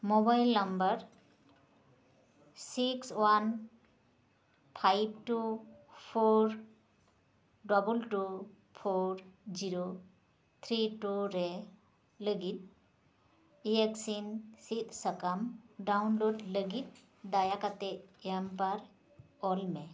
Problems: constant background noise